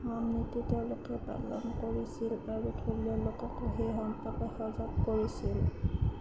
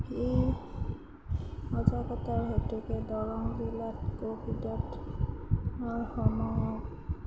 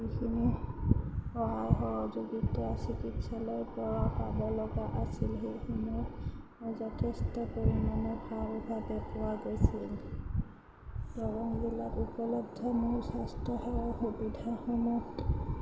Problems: background sounds at intervals, low volume